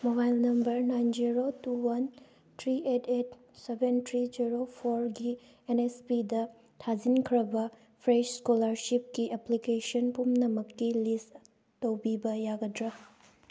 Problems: none marked